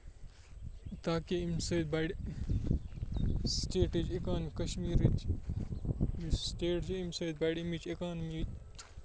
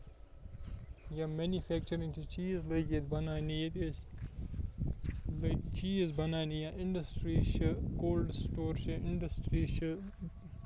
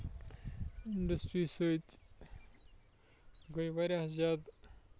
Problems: constant background noise, low volume